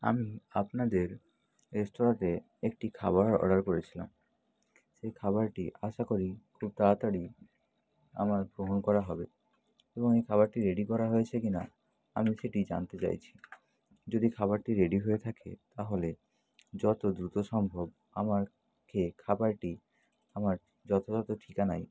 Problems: constant background noise